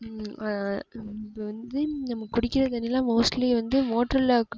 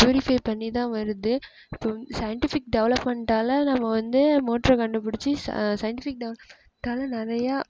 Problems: background sounds at intervals, low volume